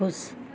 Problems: none marked